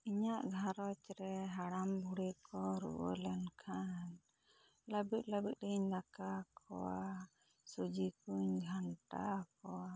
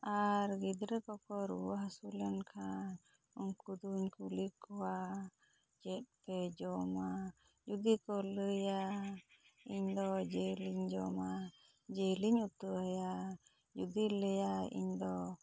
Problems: low volume